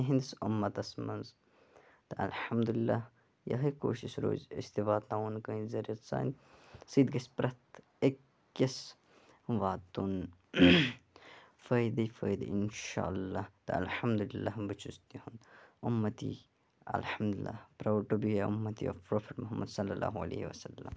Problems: background sounds at intervals, low volume